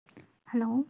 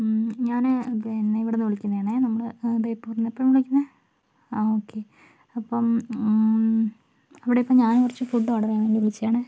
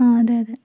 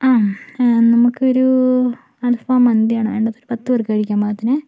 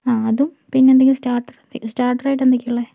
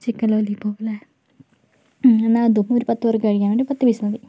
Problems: low volume